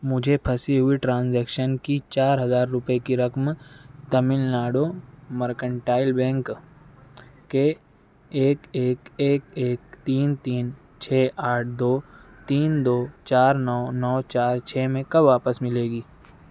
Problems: none marked